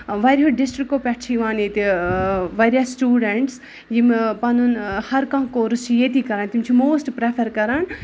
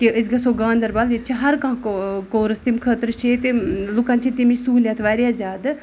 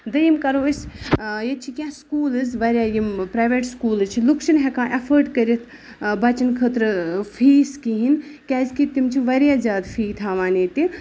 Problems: background sounds at intervals